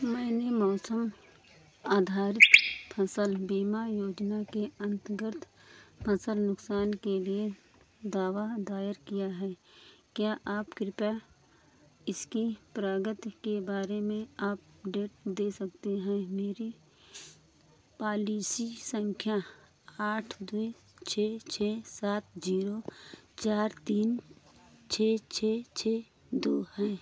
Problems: constant background noise